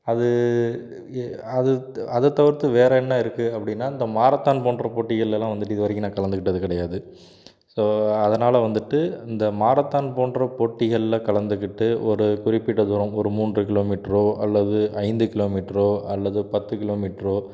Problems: background sounds at intervals